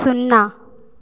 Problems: none marked